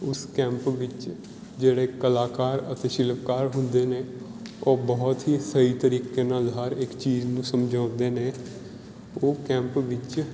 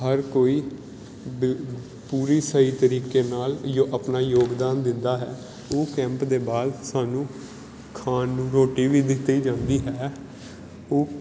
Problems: background sounds at intervals